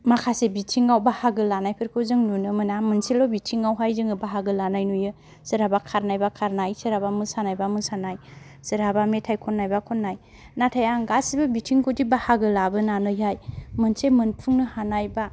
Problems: none marked